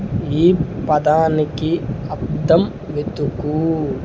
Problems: none marked